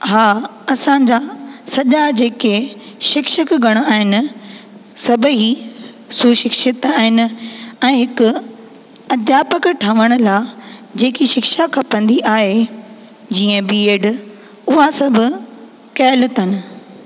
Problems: constant background noise, echo